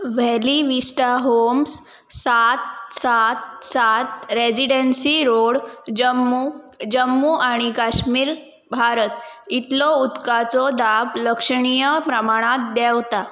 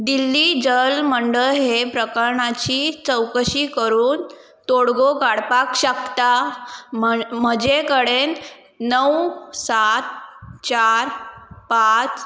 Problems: none marked